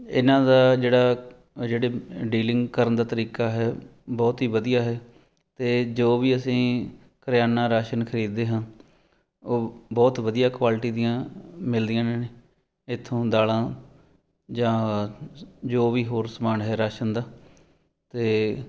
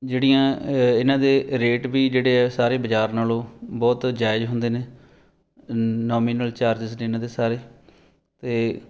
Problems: background sounds at intervals